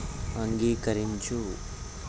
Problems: constant background noise